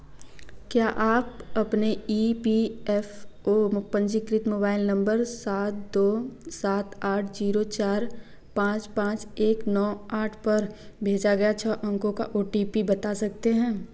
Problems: none marked